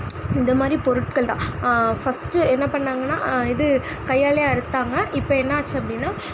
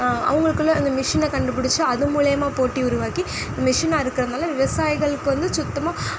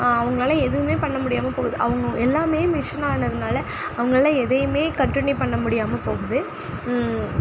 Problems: background sounds at intervals